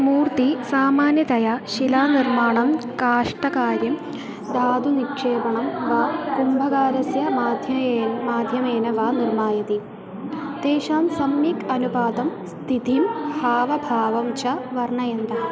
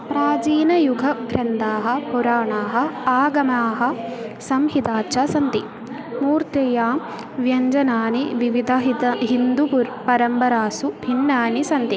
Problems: constant background noise, continuous background conversations